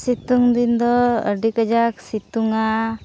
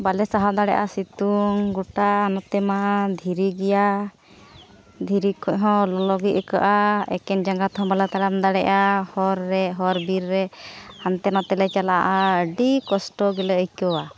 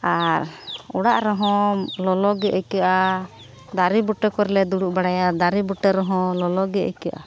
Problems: none marked